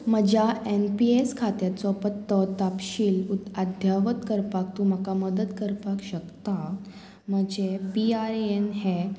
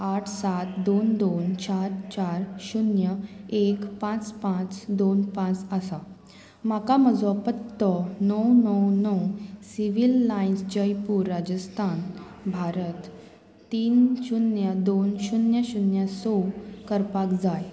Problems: none marked